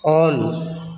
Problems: echo